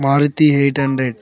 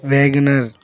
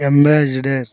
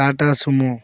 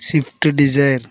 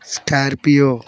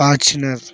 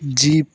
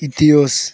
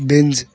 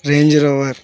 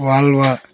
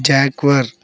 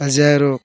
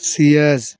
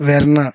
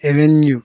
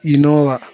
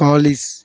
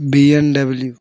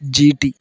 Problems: background sounds at intervals